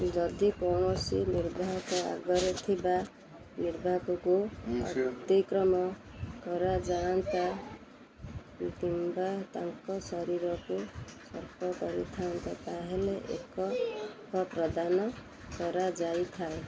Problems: constant background noise